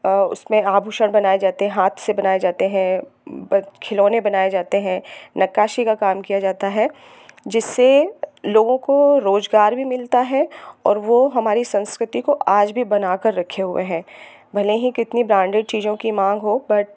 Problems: none marked